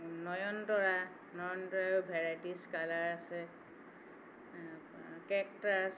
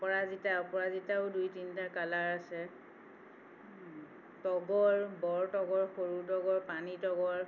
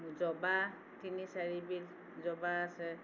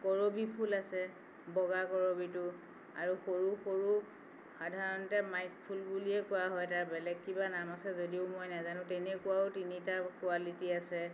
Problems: none marked